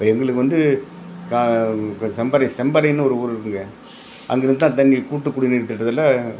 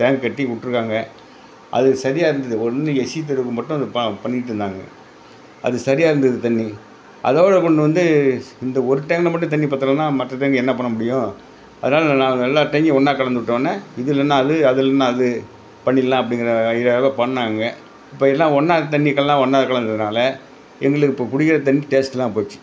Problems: background conversations at intervals